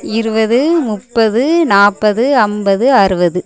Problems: continuous background conversations